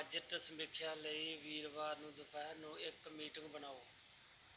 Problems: background sounds at intervals